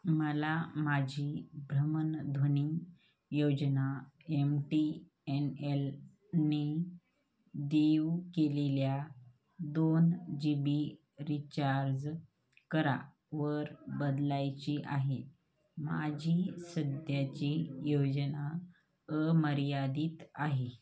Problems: none marked